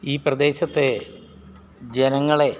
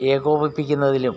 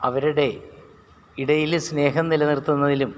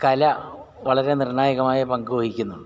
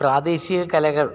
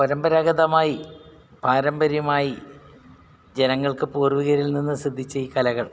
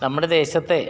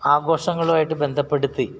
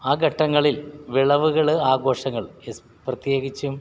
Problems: background sounds at intervals